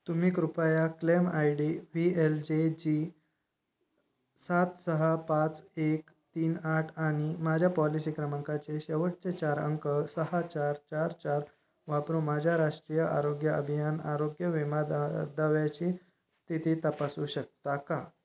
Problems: none marked